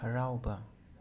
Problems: continuous background conversations, low volume